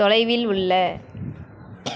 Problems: constant background noise